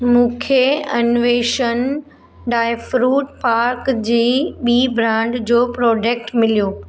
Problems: none marked